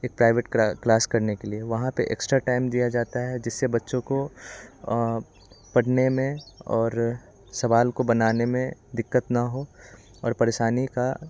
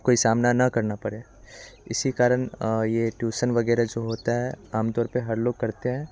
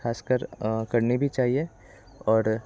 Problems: constant background noise, continuous background conversations